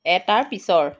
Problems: none marked